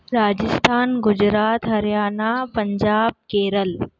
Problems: none marked